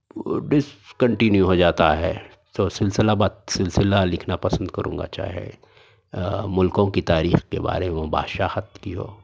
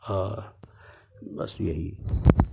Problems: none marked